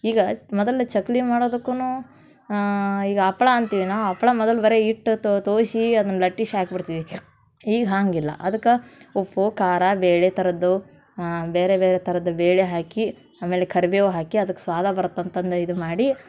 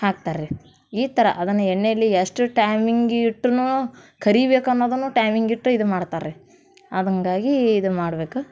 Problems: none marked